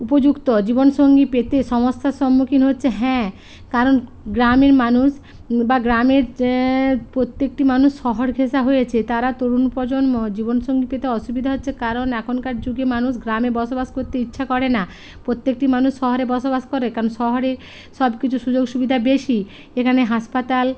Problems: constant background noise